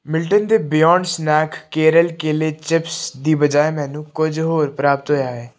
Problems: none marked